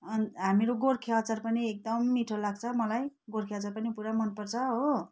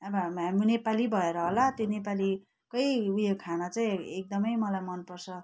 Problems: constant background noise